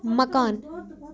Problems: background conversations at intervals